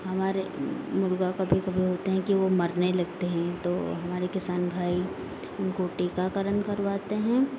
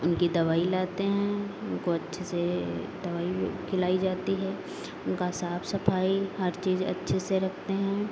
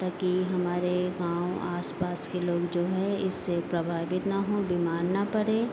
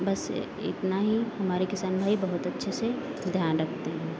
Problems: constant background noise